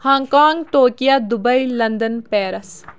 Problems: constant background noise